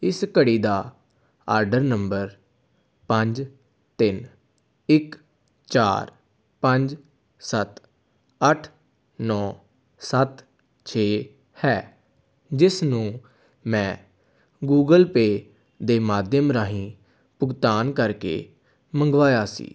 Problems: none marked